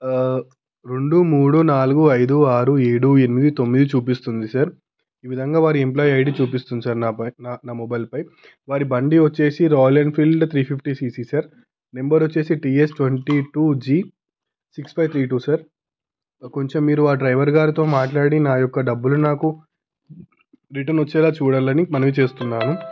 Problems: background sounds at intervals